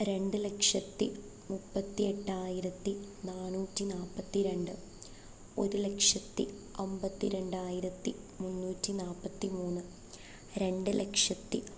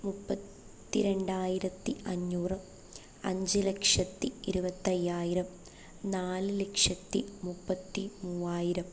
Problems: none marked